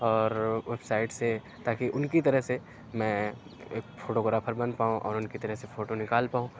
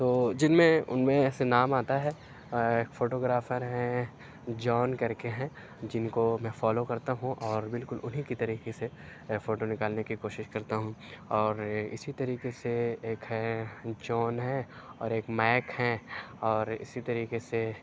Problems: low volume